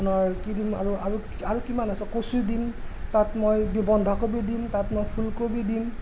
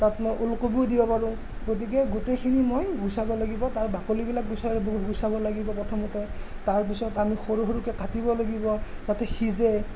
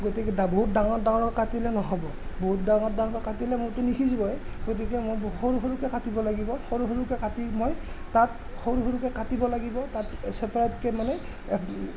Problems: constant background noise, background conversations at intervals